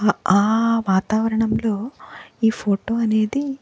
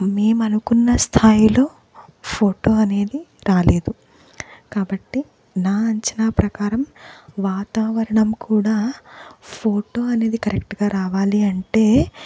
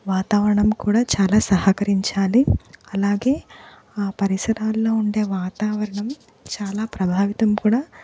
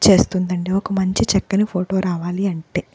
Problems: background sounds at intervals